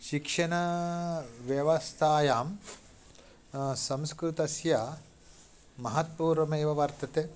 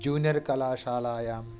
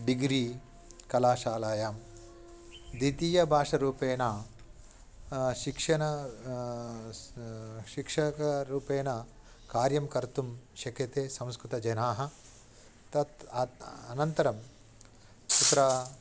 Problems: background sounds at intervals